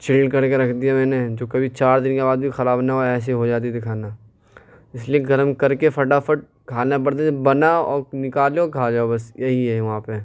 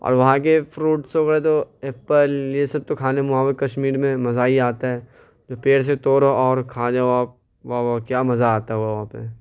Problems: none marked